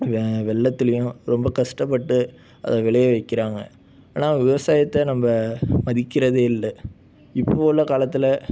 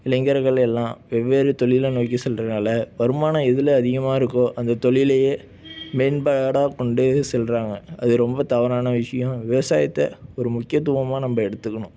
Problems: none marked